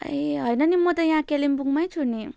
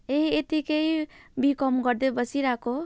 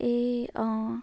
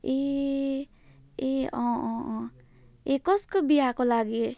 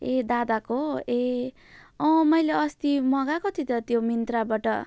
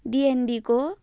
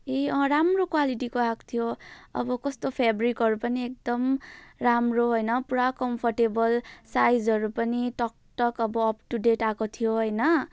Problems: none marked